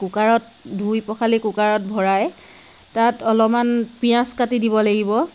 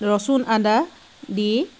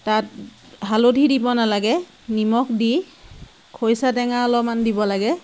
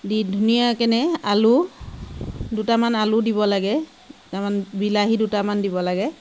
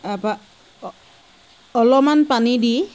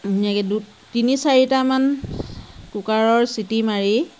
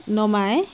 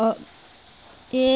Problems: constant background noise